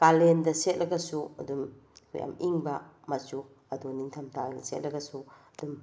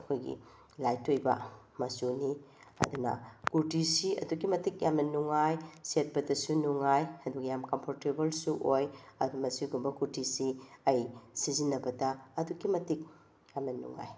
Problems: none marked